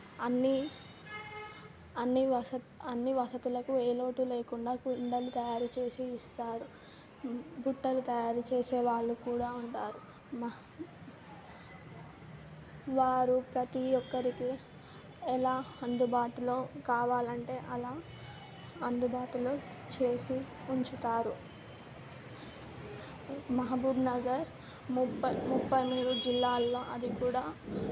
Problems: constant background noise